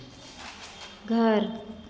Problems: constant background noise, echo